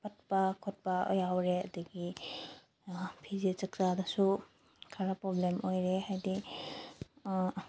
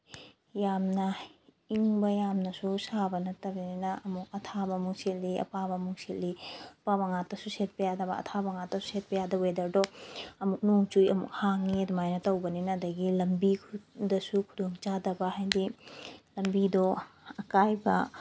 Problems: none marked